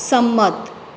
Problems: none marked